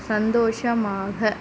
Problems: constant background noise